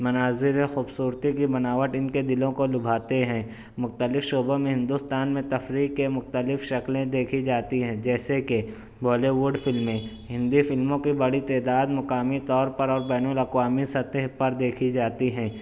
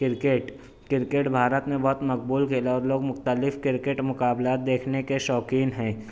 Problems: none marked